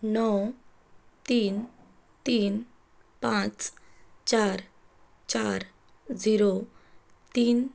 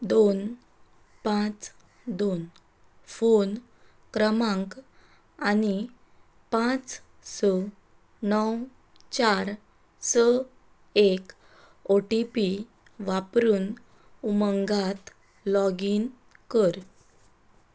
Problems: constant background noise